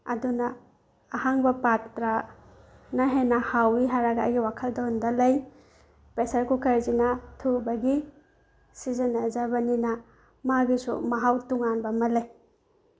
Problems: background sounds at intervals